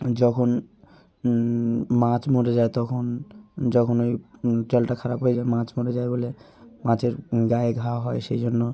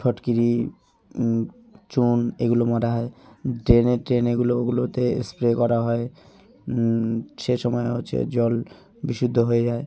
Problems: none marked